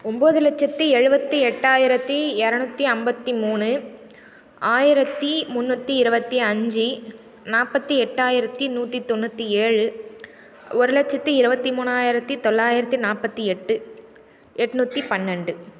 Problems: none marked